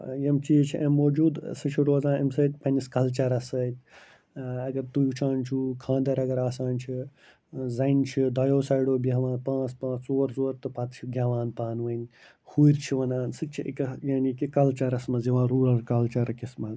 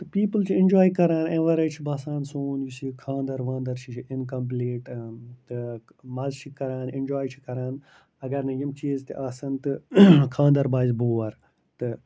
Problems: low volume